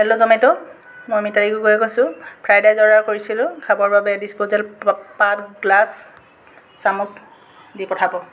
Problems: constant background noise